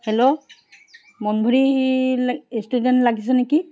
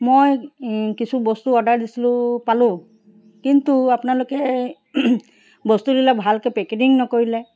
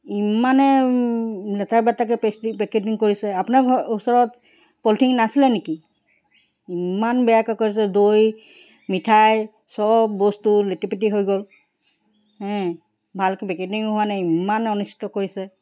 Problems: background sounds at intervals